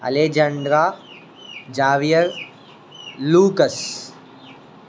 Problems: constant background noise